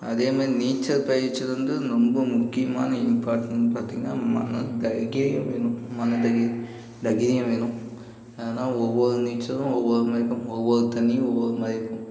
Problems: background sounds at intervals